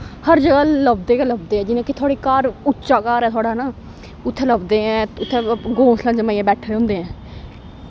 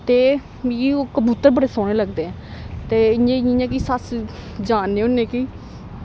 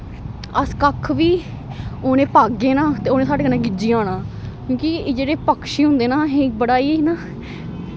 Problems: constant background noise